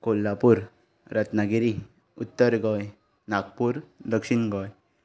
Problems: background sounds at intervals